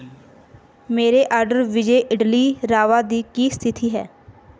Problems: background sounds at intervals